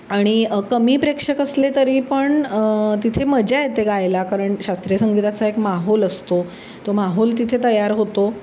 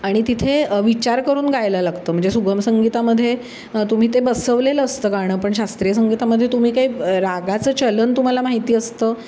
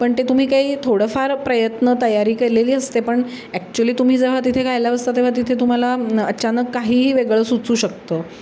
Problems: none marked